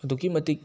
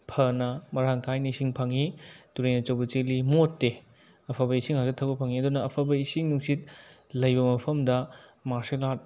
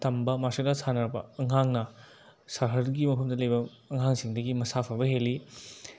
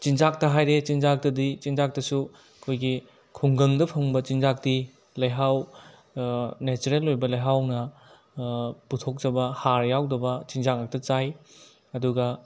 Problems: background sounds at intervals